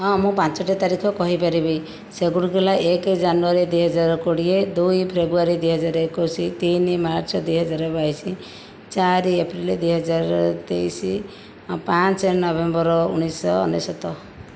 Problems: none marked